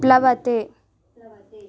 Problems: none marked